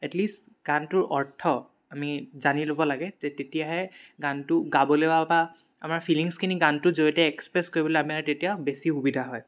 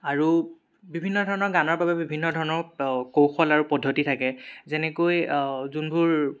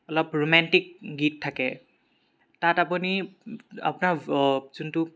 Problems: background sounds at intervals